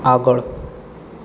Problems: constant background noise